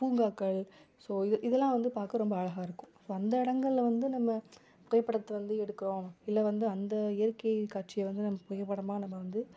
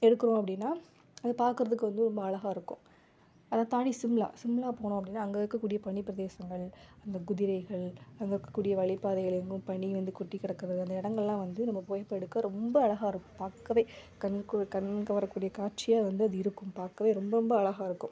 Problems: background conversations at intervals